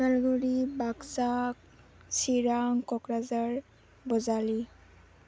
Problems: low volume